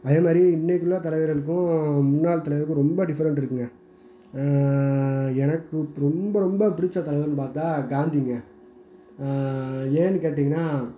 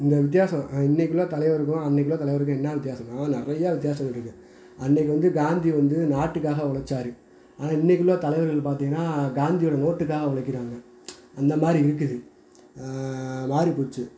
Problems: background sounds at intervals